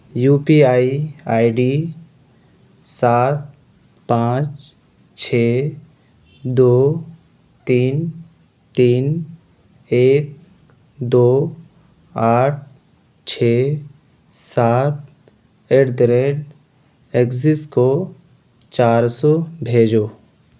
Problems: constant background noise